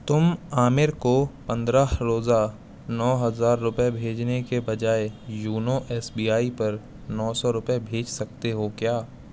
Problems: constant background noise